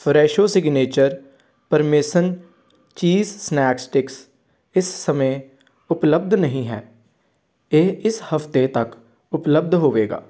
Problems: background conversations at intervals